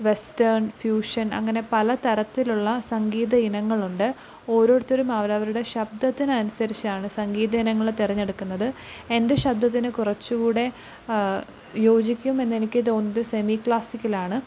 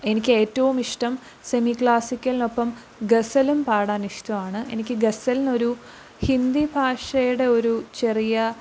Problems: low volume